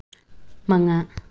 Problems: low volume